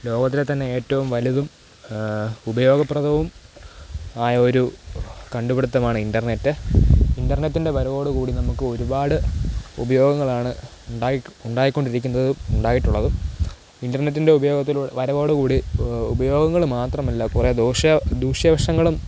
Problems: constant background noise, low volume